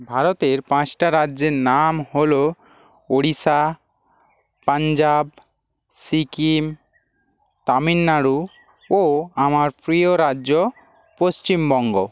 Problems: constant background noise